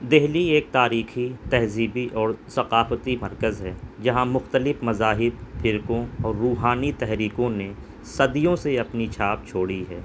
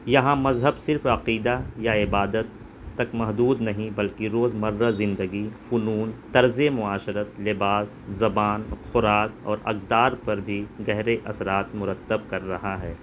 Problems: constant background noise